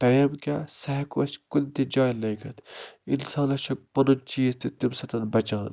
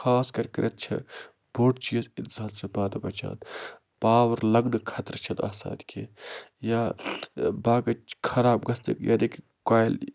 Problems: constant background noise